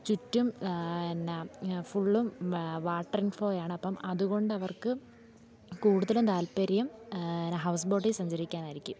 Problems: low volume